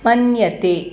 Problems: constant background noise